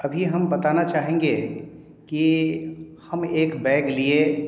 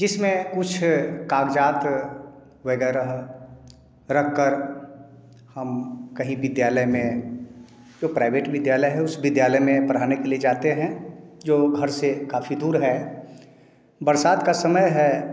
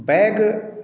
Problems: echo